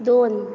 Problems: constant background noise